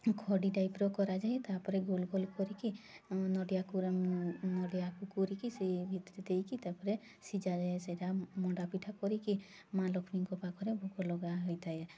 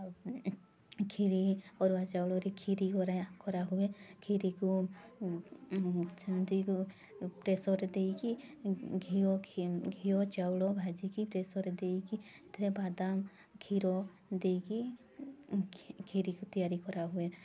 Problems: constant background noise